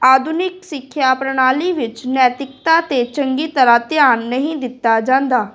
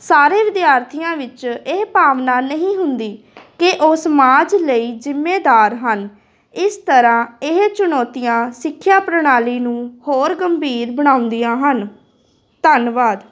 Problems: constant background noise, continuous background conversations